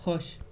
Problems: constant background noise